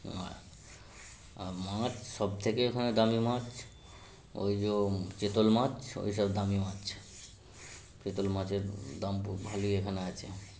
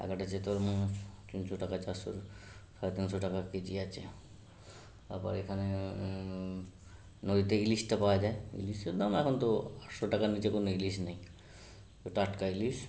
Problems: constant background noise